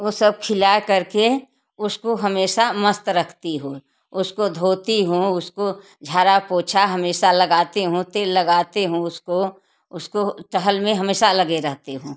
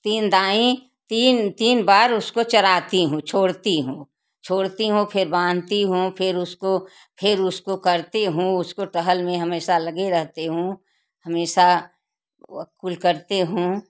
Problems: none marked